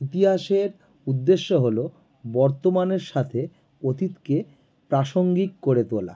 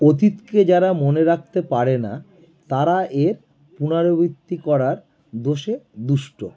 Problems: none marked